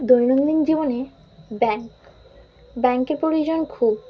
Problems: none marked